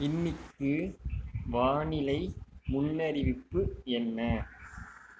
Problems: low volume